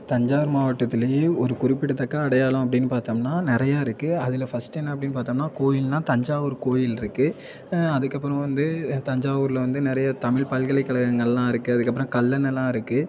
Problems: continuous background conversations